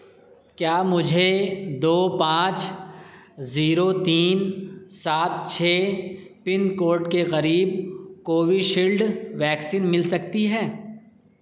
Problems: none marked